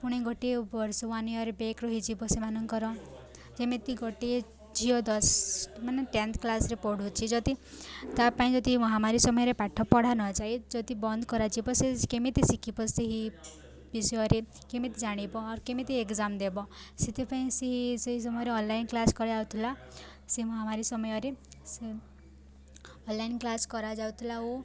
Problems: constant background noise, continuous background conversations